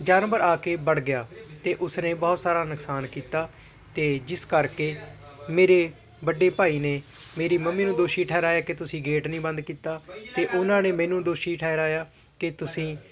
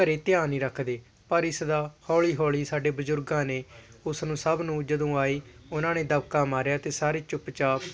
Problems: constant background noise, continuous background conversations